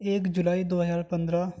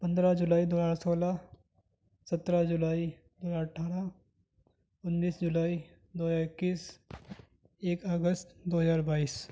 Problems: none marked